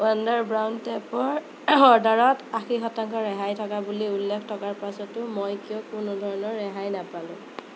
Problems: constant background noise